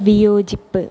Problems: low volume